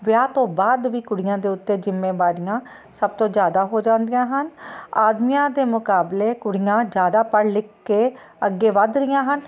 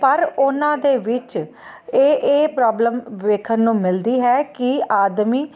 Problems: constant background noise